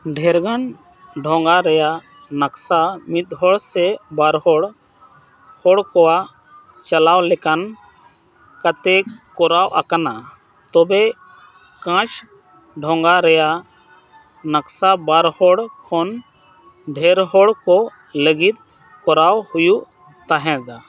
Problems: constant background noise